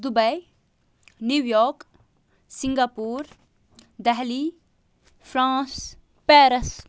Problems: none marked